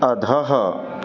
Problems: none marked